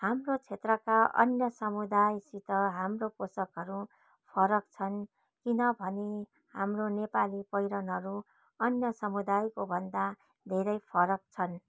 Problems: background sounds at intervals